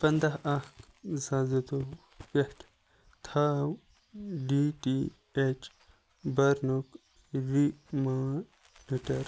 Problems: none marked